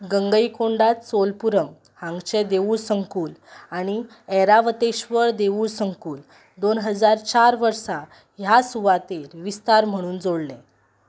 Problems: background sounds at intervals